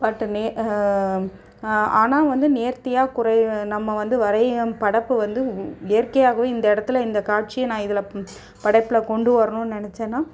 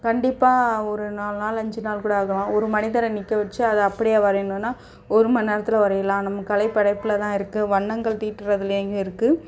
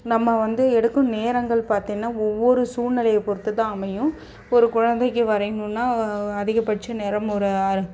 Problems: background sounds at intervals